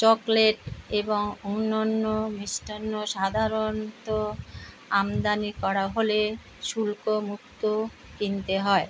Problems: constant background noise